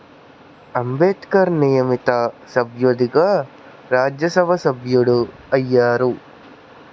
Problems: constant background noise